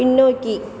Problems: background sounds at intervals